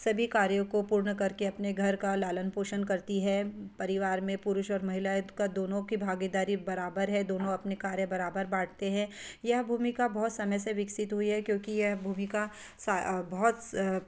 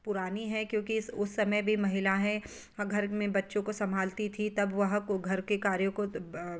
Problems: background sounds at intervals